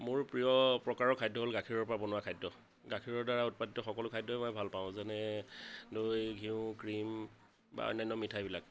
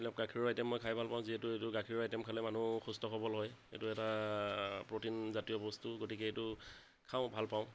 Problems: constant background noise